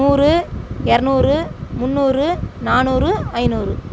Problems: background sounds at intervals